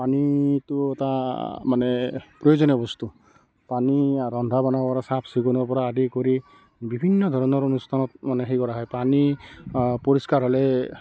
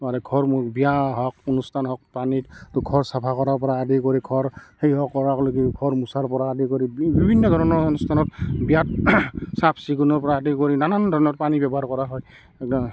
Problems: background sounds at intervals, continuous background conversations